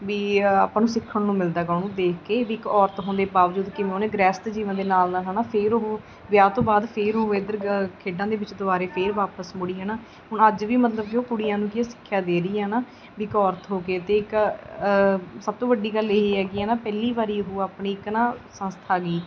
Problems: background sounds at intervals, background conversations at intervals